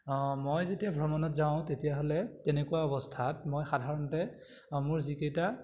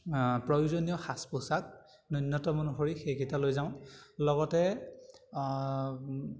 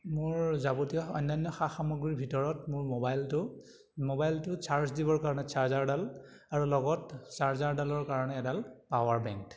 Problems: none marked